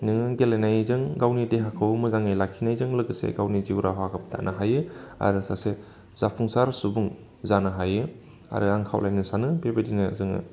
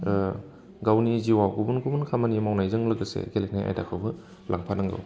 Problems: constant background noise